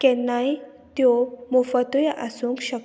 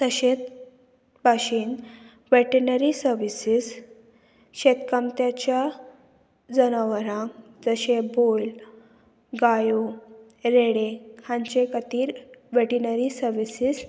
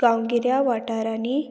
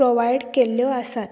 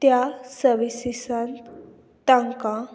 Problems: none marked